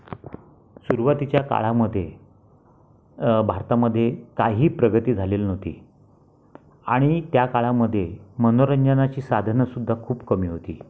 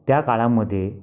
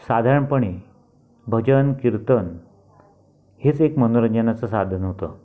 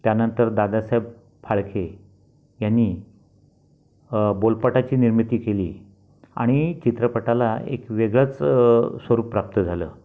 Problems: background sounds at intervals